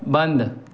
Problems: constant background noise